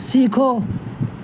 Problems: constant background noise